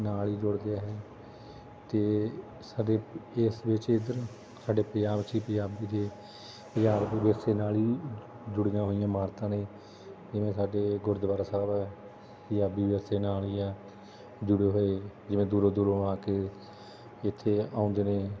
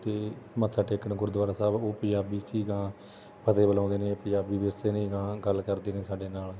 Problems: constant background noise